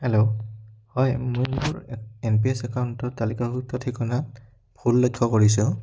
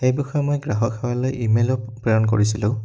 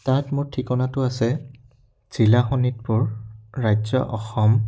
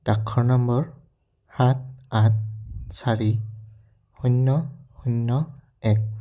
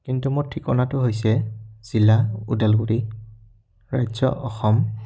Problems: none marked